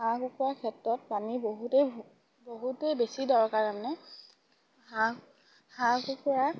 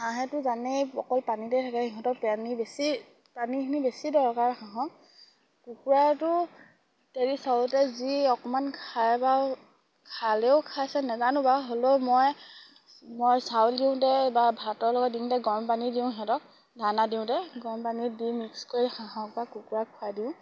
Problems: none marked